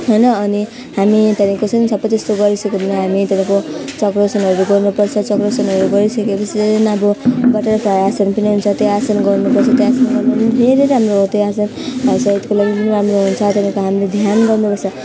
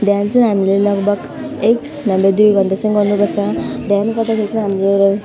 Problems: constant background noise